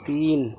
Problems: constant background noise